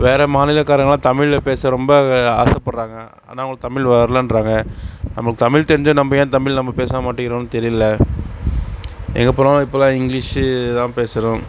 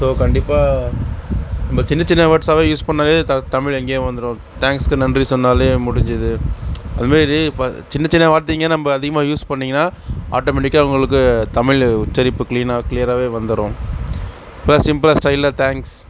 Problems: constant background noise